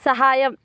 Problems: none marked